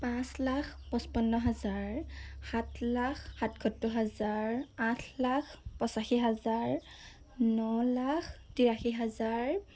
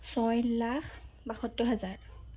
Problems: none marked